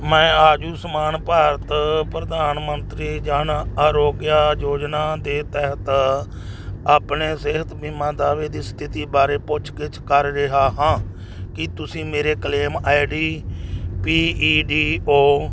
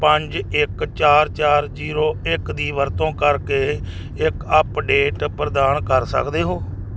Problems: none marked